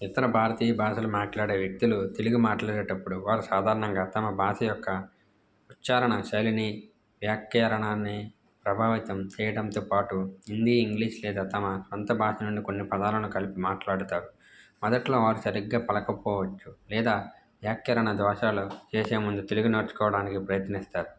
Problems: none marked